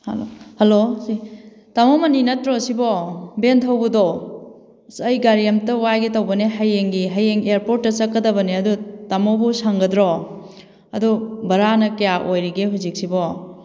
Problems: none marked